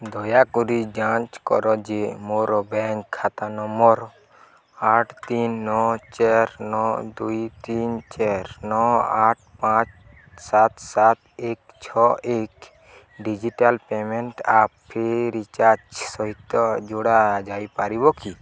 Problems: none marked